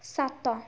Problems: none marked